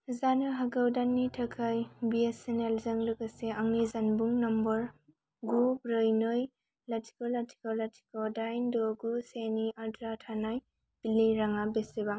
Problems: constant background noise